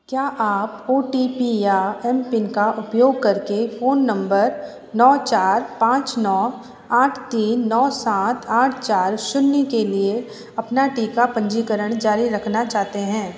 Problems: constant background noise